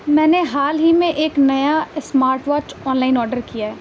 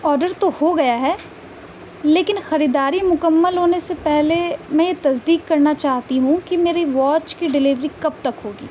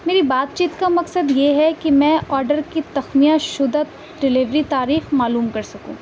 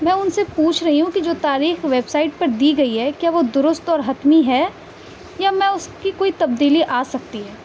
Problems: constant background noise